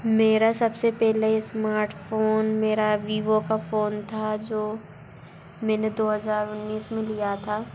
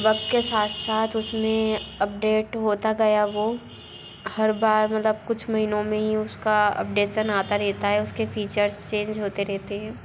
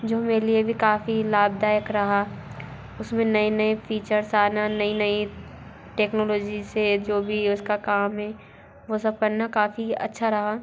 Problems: constant background noise, continuous background conversations